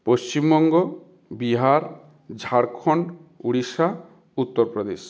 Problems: continuous background conversations